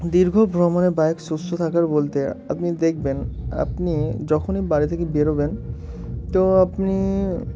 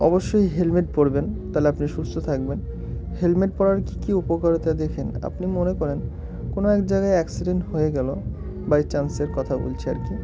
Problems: constant background noise, continuous background conversations